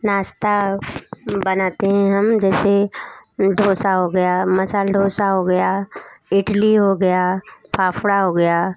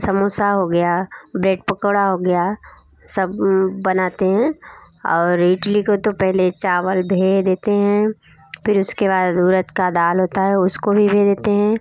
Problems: none marked